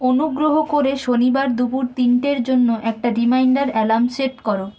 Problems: background sounds at intervals